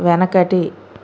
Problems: constant background noise